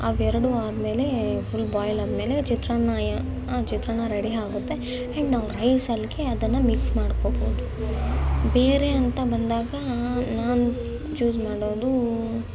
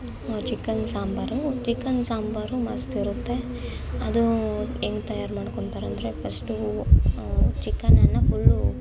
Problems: constant background noise